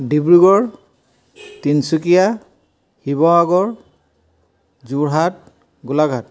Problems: none marked